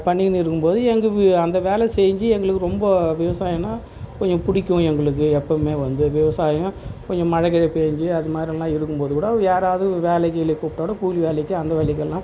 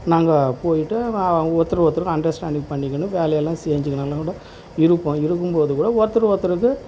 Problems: constant background noise